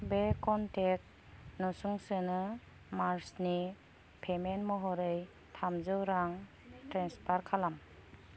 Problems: none marked